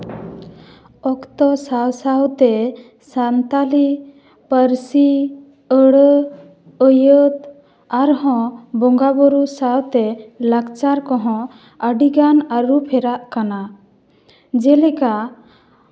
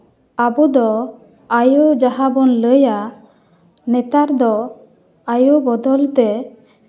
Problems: echo